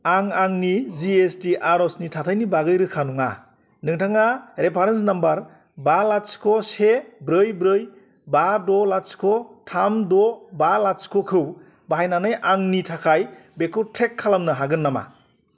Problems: constant background noise